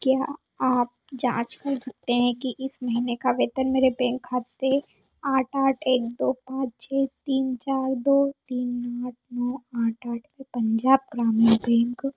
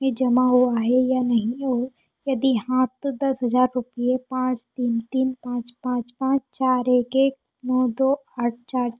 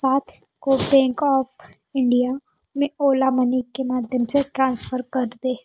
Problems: low volume